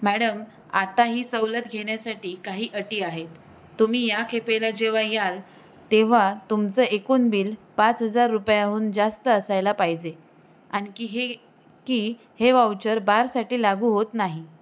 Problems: constant background noise